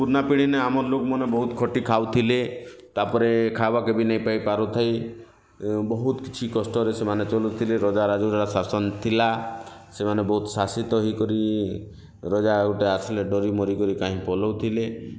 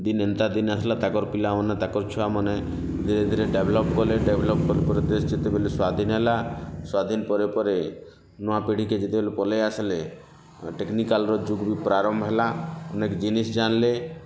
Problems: constant background noise